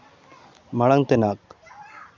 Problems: constant background noise